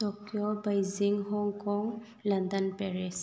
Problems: none marked